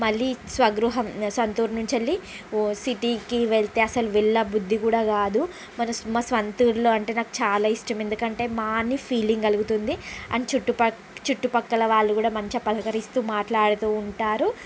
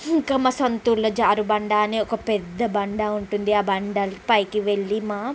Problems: constant background noise